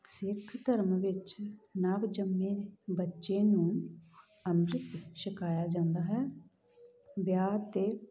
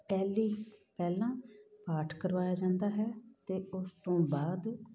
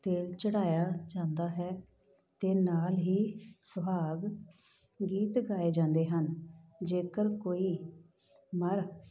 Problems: background sounds at intervals